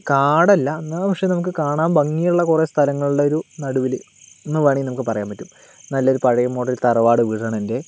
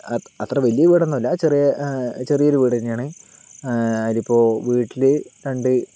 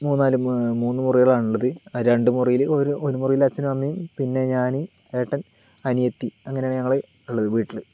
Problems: none marked